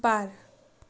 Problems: background sounds at intervals, low volume